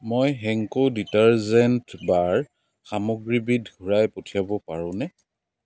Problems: background sounds at intervals